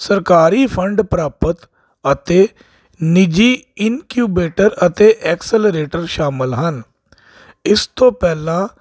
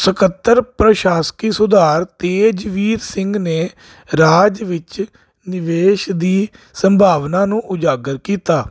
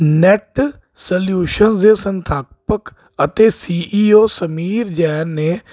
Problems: constant background noise